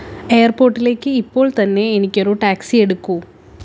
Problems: background sounds at intervals